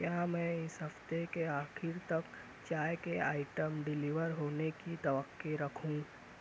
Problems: none marked